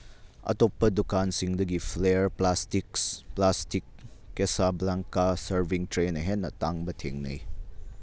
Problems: none marked